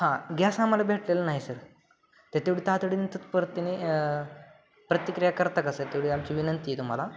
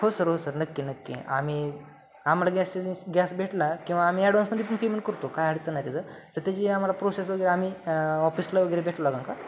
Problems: none marked